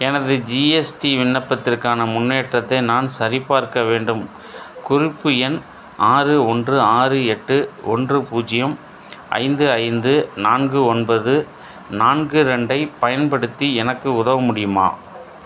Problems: none marked